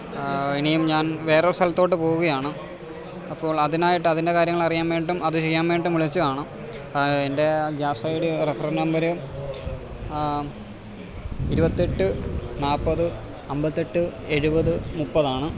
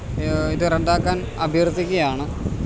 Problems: constant background noise